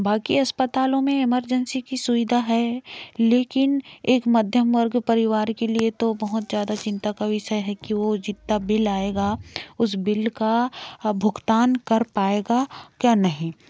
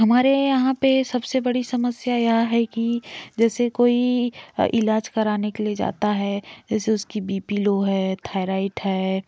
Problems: none marked